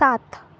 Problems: none marked